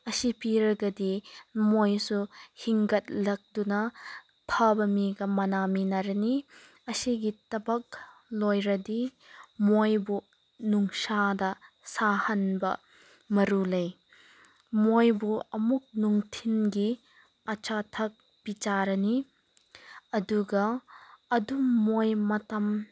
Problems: background sounds at intervals